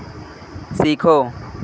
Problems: constant background noise